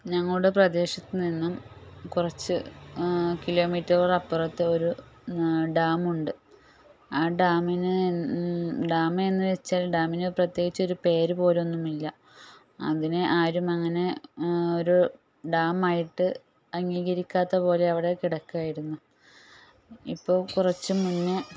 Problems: background sounds at intervals, low volume